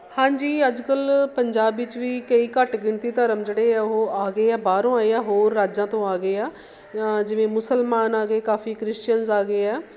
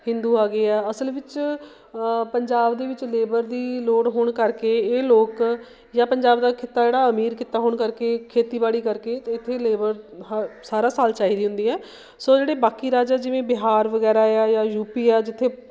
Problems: constant background noise